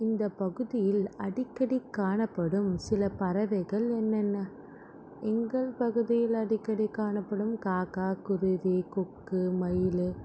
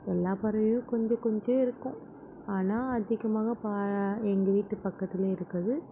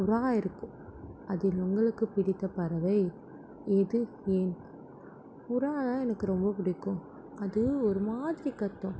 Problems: none marked